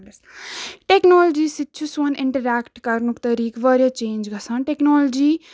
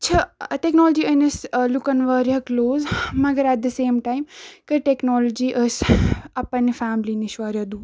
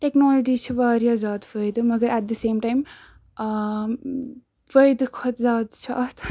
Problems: none marked